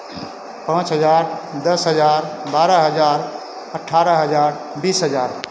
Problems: none marked